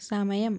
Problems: none marked